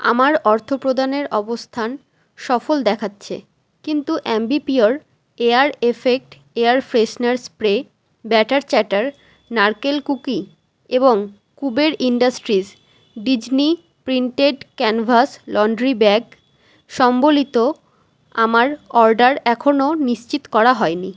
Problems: constant background noise